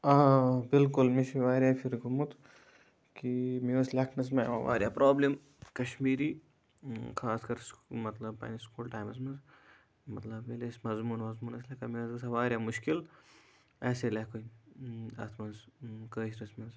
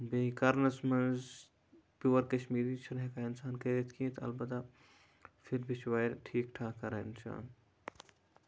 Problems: none marked